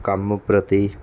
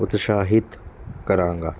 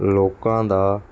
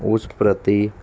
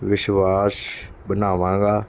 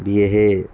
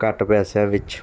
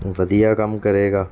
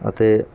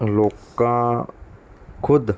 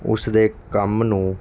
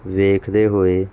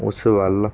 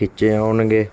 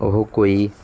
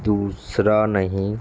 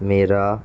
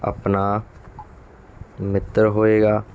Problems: background sounds at intervals